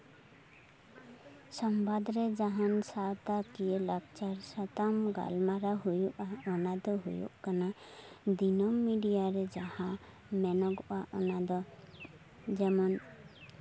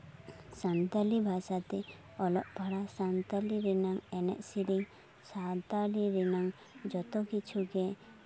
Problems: background sounds at intervals, continuous background conversations